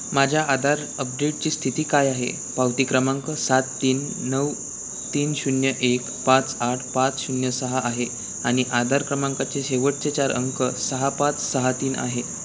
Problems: constant background noise, background conversations at intervals